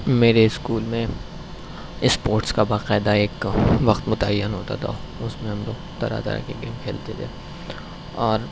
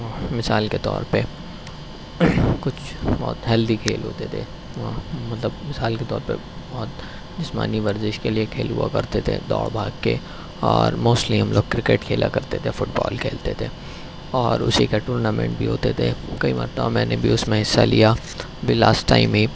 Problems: constant background noise